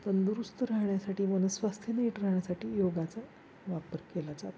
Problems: constant background noise, low volume